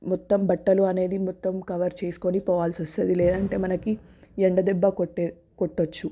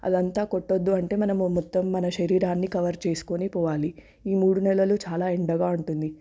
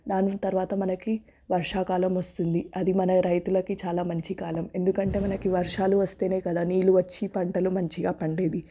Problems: background sounds at intervals